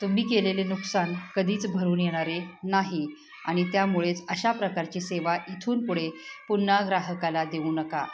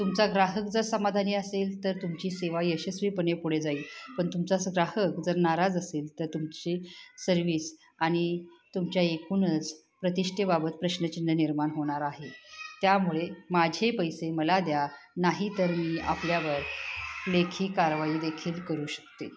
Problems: constant background noise, background conversations at intervals